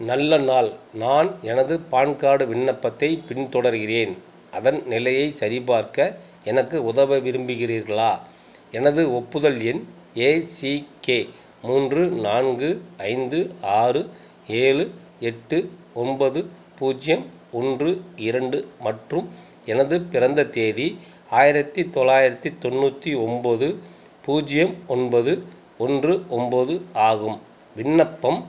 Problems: constant background noise